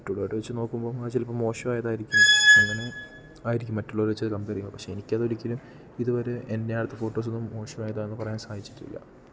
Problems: background sounds at intervals